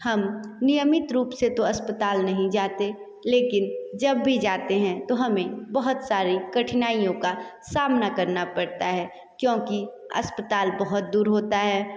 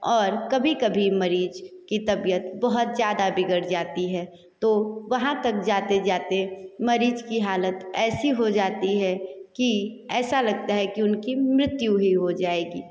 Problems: echo